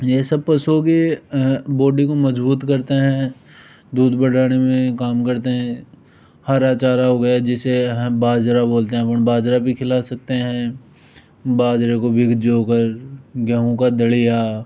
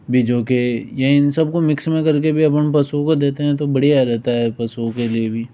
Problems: background sounds at intervals